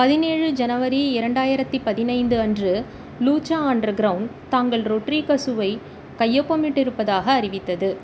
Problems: constant background noise